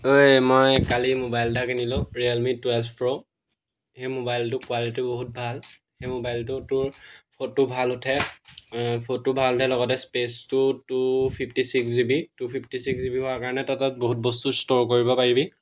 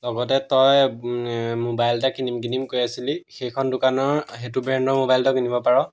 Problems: background sounds at intervals